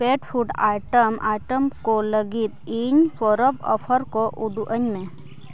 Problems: constant background noise